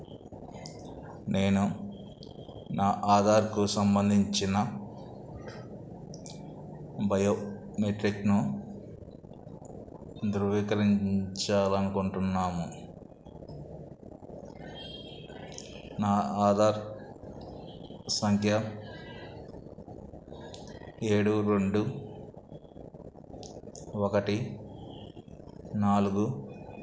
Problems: background sounds at intervals